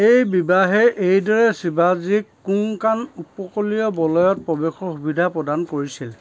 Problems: constant background noise, background conversations at intervals